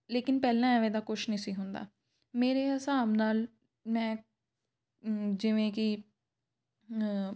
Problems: none marked